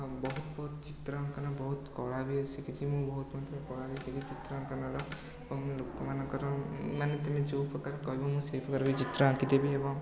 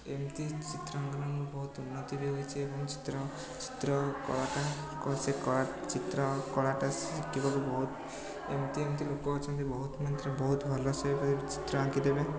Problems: constant background noise, continuous background conversations